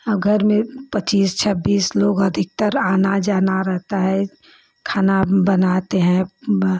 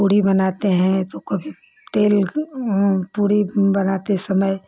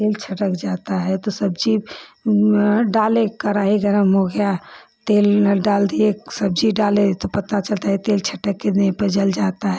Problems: none marked